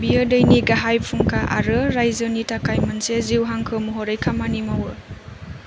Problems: constant background noise